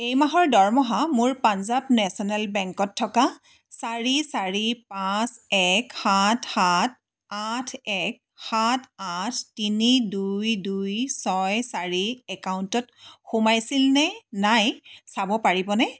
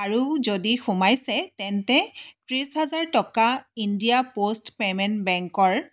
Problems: background sounds at intervals